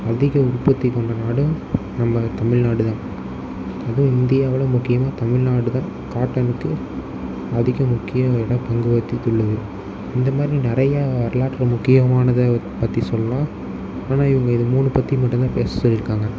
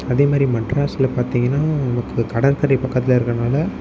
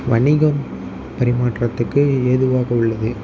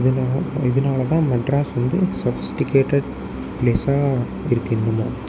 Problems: constant background noise